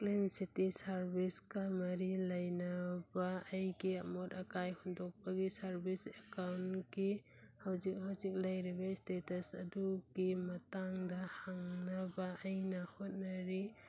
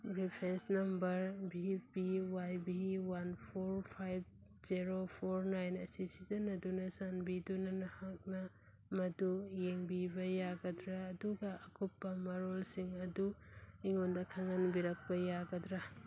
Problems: background sounds at intervals